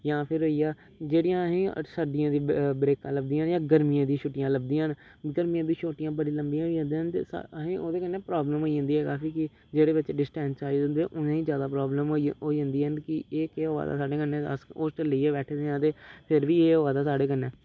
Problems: none marked